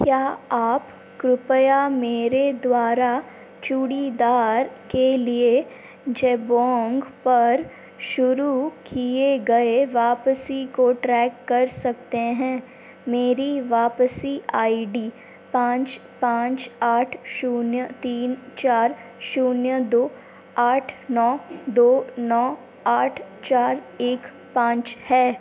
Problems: constant background noise